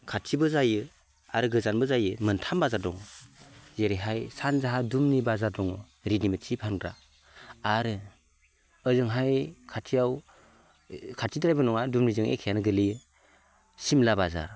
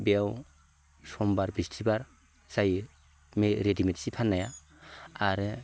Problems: none marked